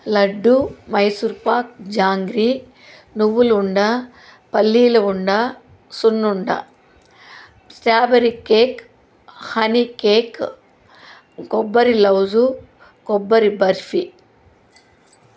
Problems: none marked